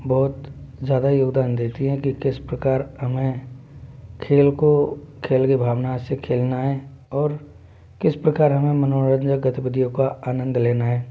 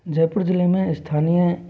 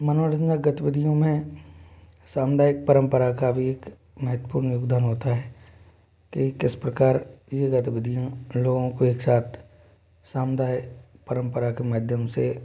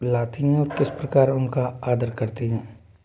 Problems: none marked